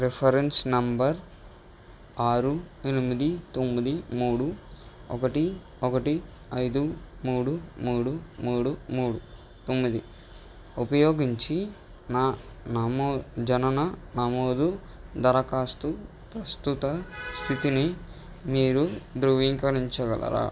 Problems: background sounds at intervals